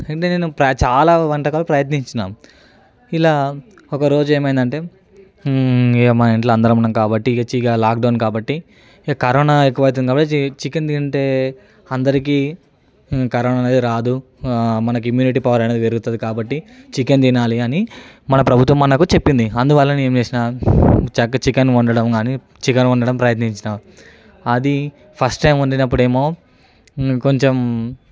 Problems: none marked